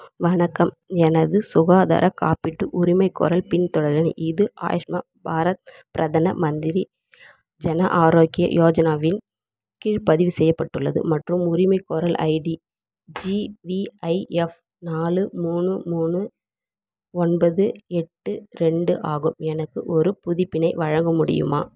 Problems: none marked